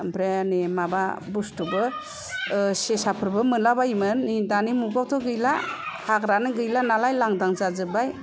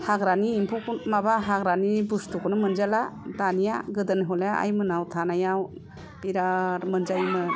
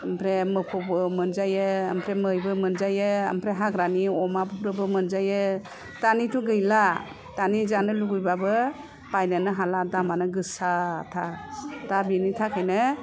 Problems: none marked